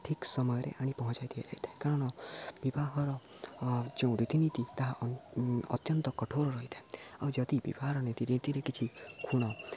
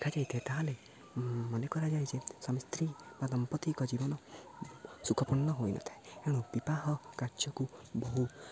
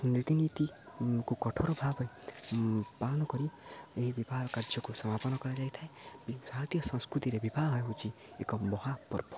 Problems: low volume